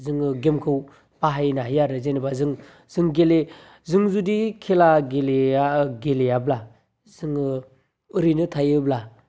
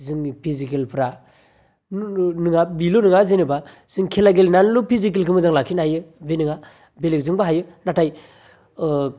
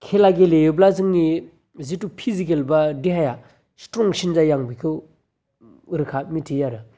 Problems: none marked